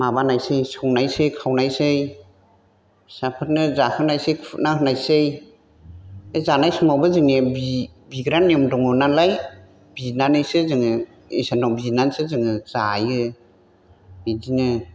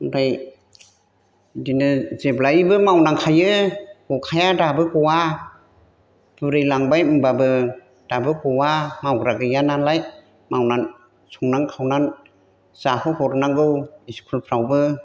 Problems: none marked